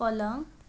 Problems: none marked